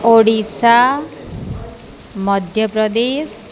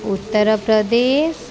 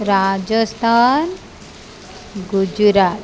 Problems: constant background noise